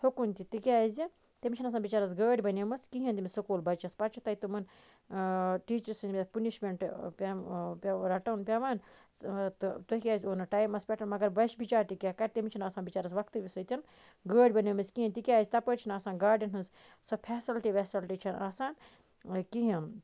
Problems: constant background noise